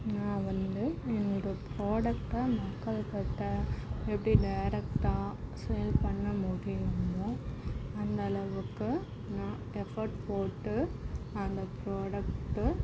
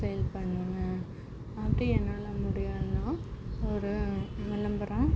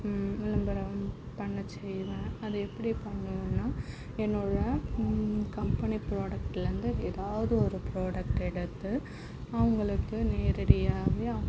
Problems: background sounds at intervals, low volume